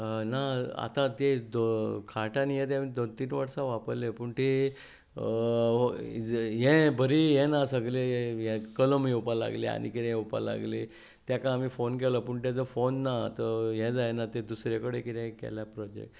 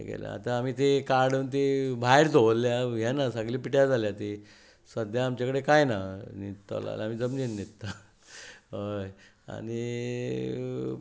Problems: background sounds at intervals